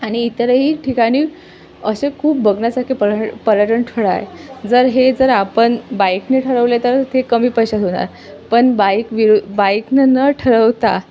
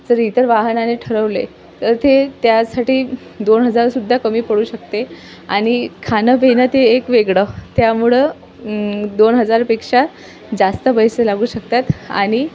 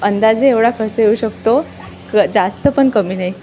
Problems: constant background noise, background conversations at intervals